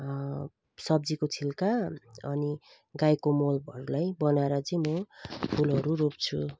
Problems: constant background noise